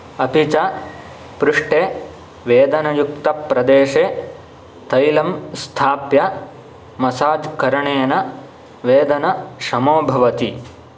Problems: none marked